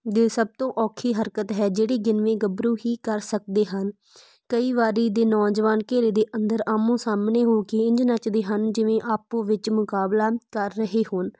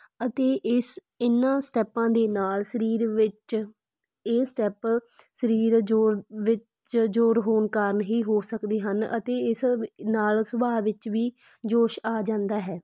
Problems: background sounds at intervals